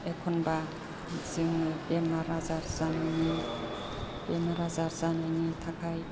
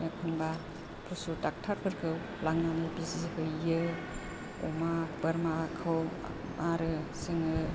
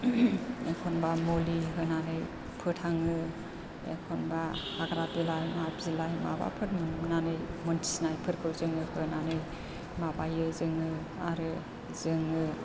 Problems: constant background noise